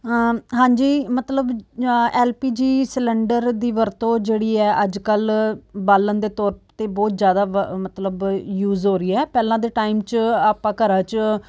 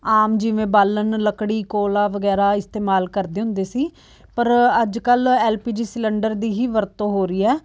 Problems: background sounds at intervals